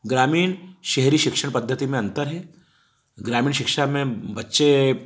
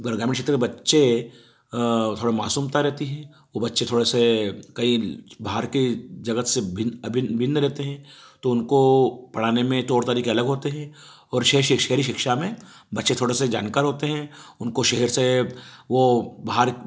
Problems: background sounds at intervals